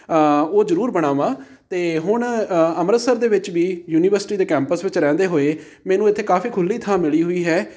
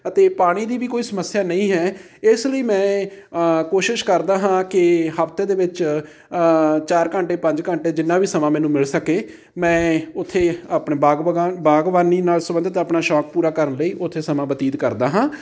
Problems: background conversations at intervals